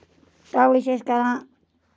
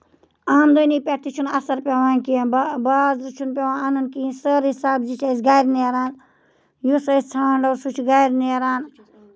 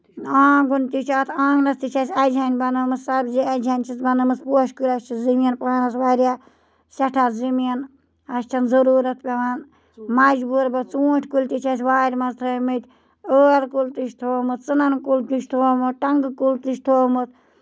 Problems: none marked